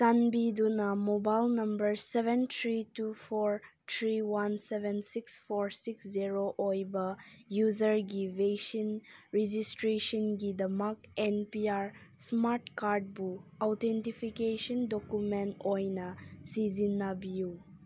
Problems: none marked